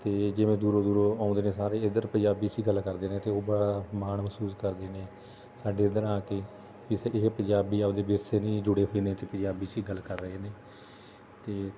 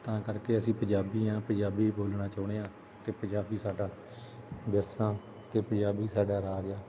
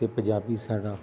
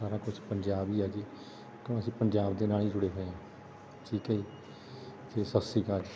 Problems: constant background noise